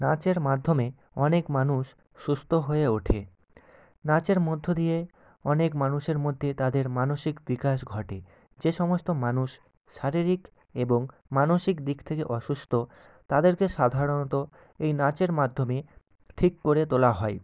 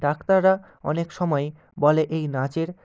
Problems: none marked